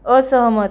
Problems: background sounds at intervals